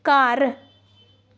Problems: background sounds at intervals